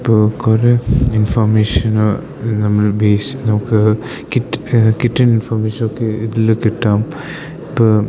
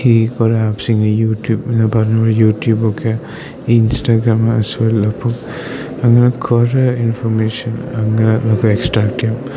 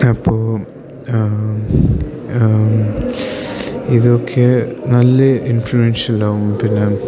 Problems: none marked